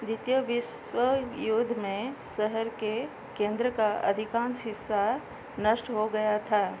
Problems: none marked